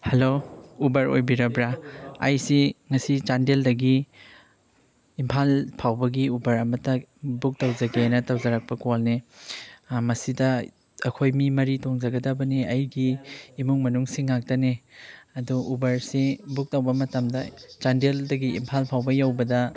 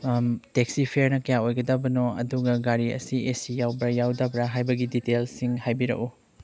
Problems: none marked